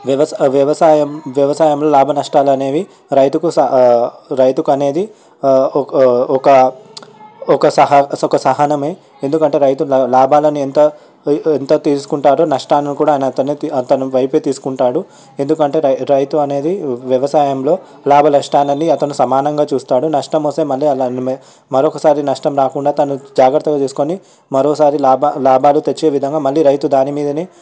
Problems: none marked